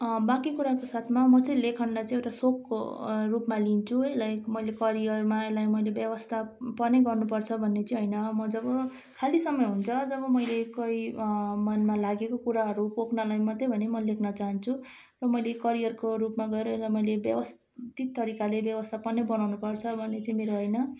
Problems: constant background noise